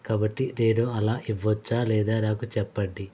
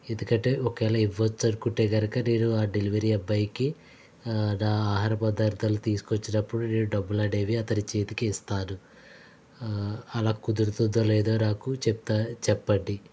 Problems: none marked